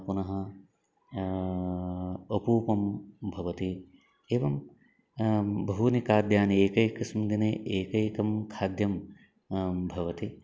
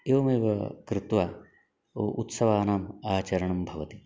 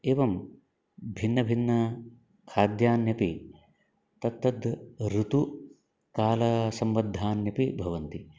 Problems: background conversations at intervals